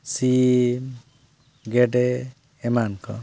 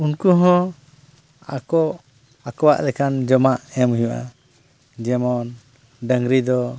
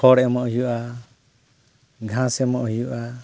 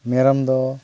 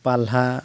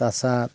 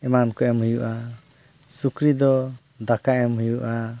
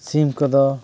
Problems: none marked